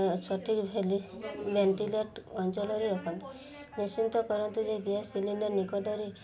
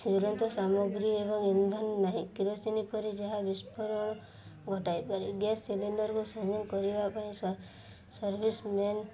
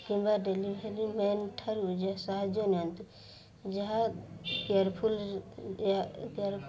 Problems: none marked